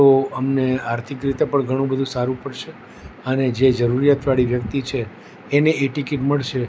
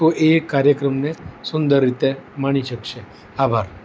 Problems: none marked